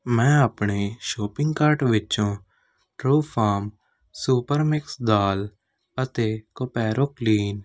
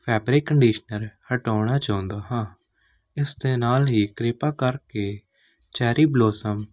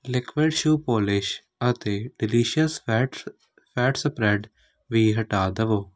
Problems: none marked